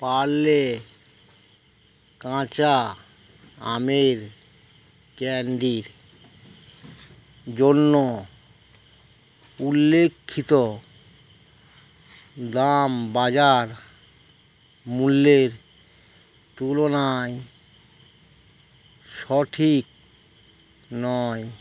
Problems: none marked